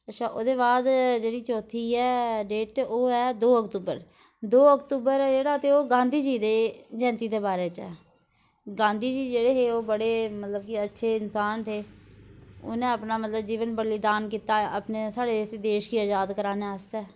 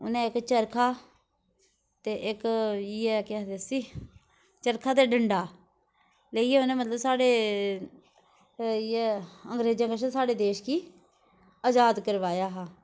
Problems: none marked